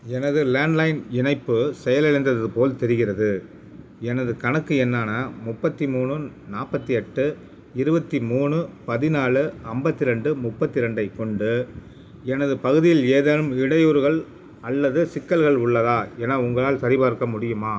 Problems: none marked